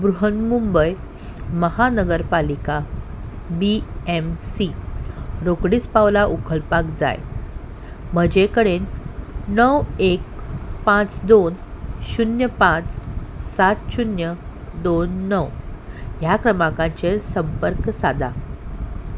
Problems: background sounds at intervals